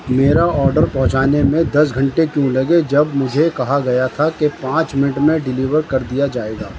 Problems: constant background noise